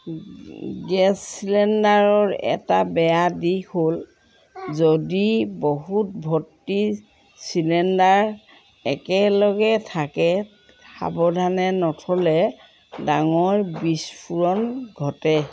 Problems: none marked